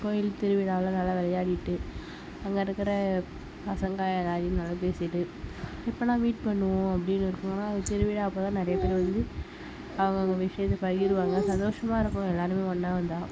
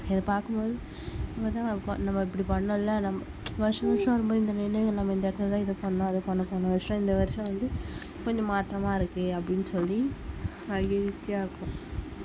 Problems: background sounds at intervals